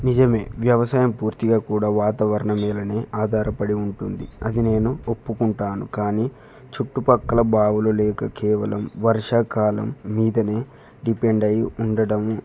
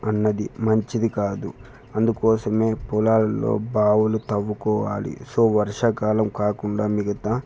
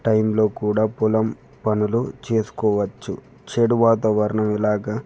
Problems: none marked